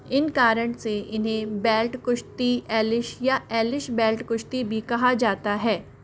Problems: constant background noise